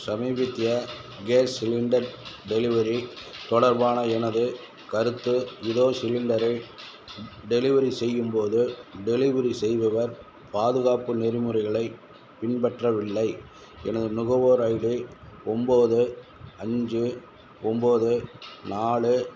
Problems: background sounds at intervals